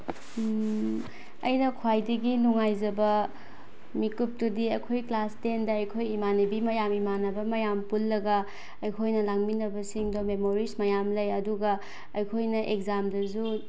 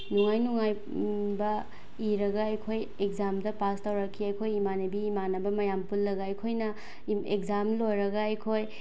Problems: background sounds at intervals